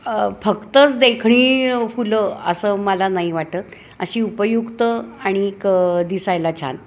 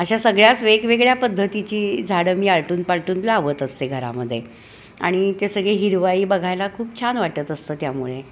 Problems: constant background noise, background conversations at intervals